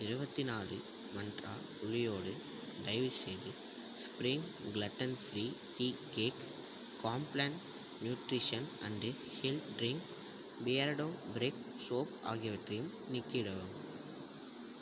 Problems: background sounds at intervals, low volume